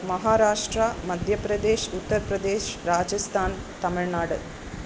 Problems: constant background noise